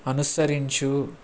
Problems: constant background noise